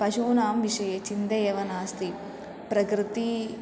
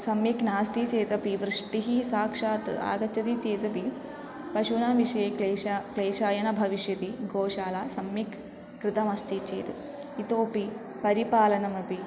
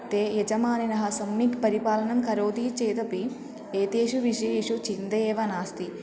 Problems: continuous background conversations